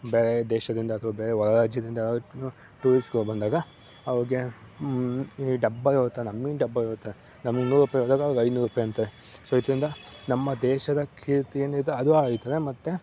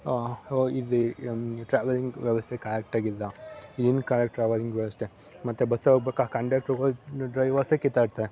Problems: none marked